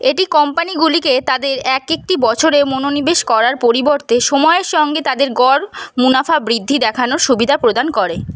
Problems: constant background noise